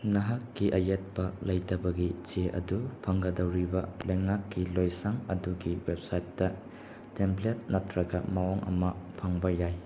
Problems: constant background noise